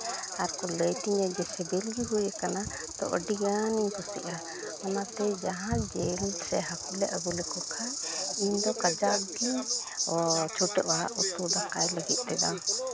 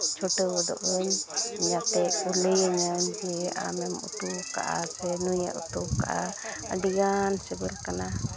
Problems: constant background noise, continuous background conversations